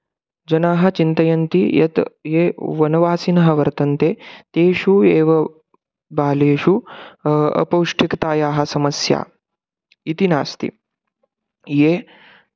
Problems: none marked